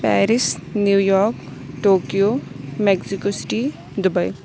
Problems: background sounds at intervals